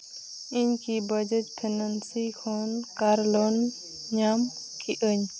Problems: constant background noise